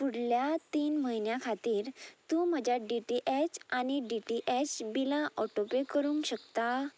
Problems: constant background noise